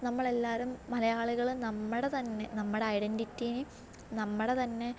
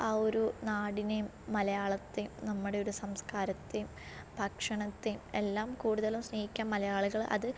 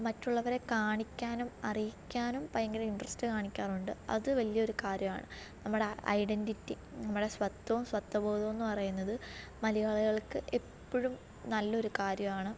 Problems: low volume